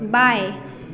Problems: constant background noise